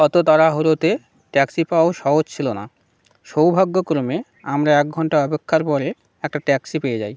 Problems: none marked